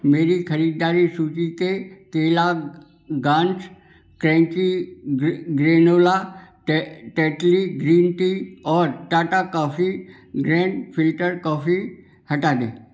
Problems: background sounds at intervals